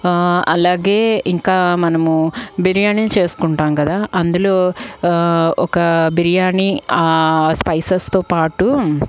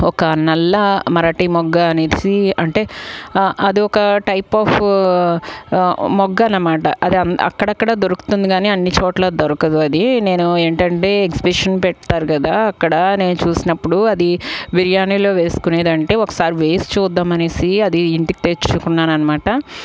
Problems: none marked